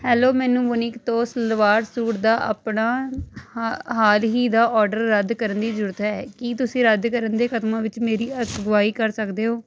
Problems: constant background noise